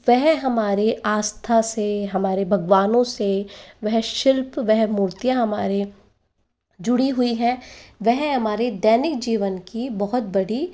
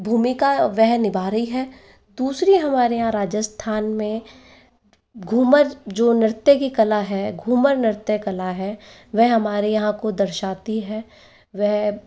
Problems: background sounds at intervals, echo